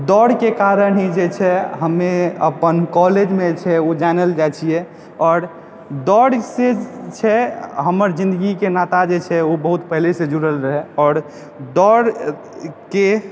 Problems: background sounds at intervals